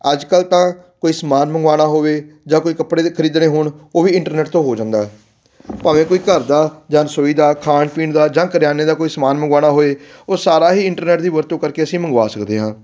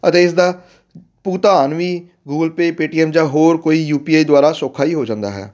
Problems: none marked